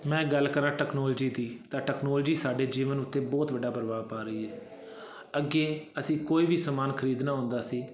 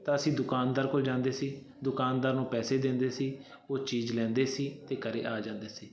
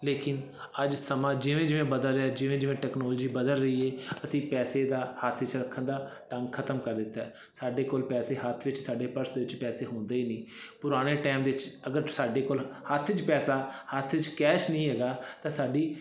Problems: constant background noise